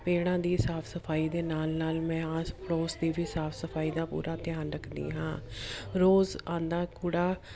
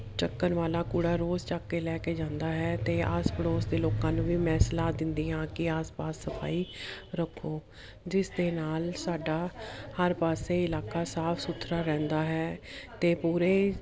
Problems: continuous background conversations